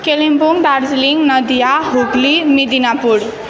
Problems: none marked